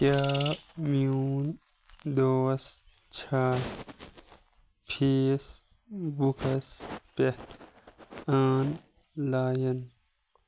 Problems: none marked